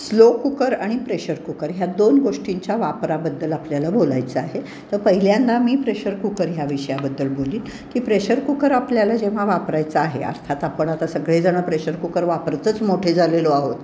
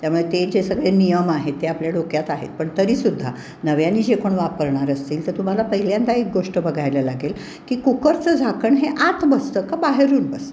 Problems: none marked